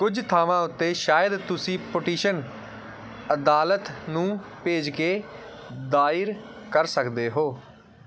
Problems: background sounds at intervals